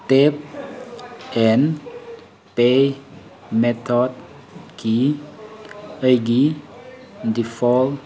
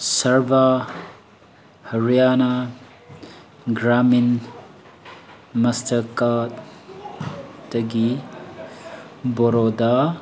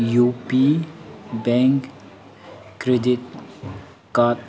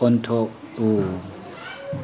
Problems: constant background noise